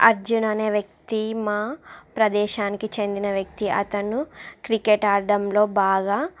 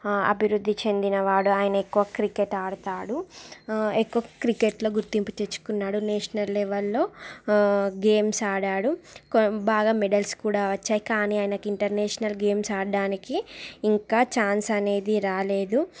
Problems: background sounds at intervals